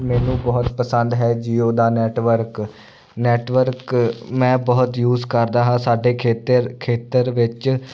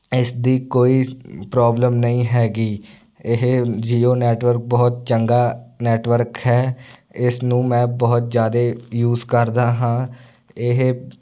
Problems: none marked